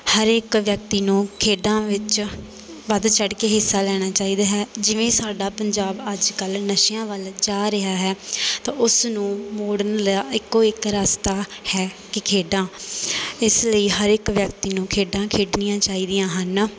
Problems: constant background noise